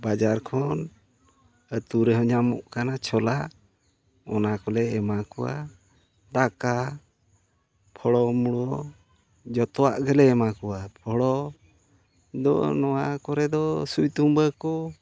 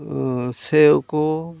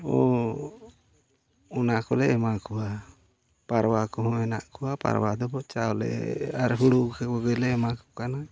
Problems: background sounds at intervals, low volume